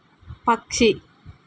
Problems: none marked